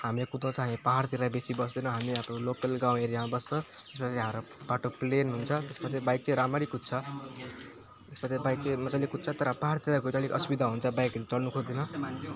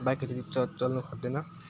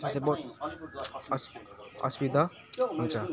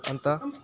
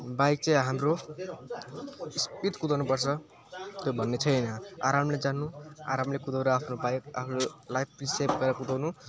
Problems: none marked